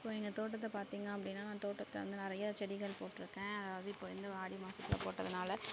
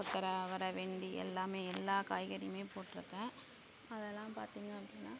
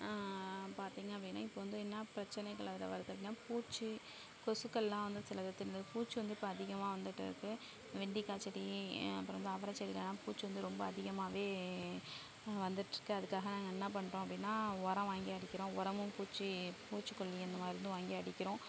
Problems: none marked